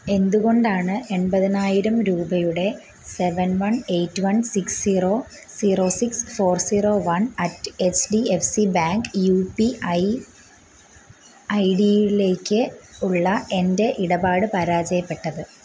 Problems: constant background noise